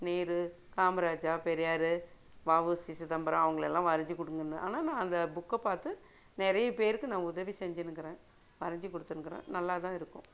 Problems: none marked